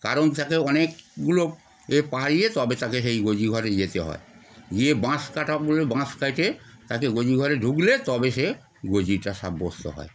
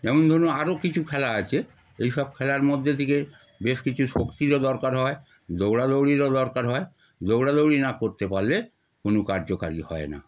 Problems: background sounds at intervals